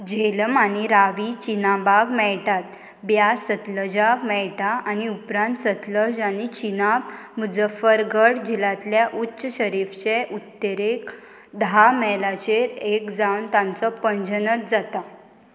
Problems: constant background noise